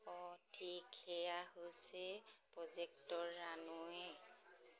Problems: none marked